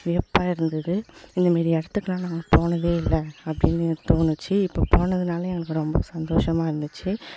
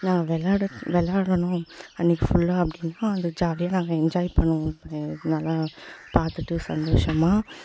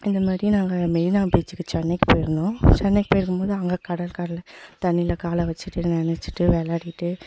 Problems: constant background noise, echo